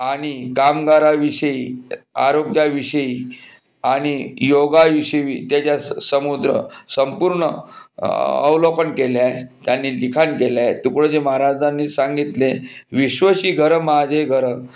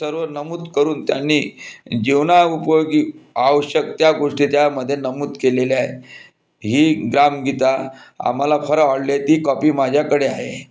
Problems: constant background noise